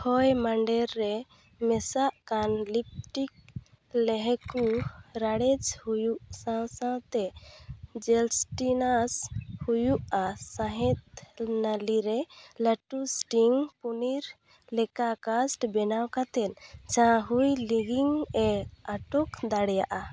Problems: background sounds at intervals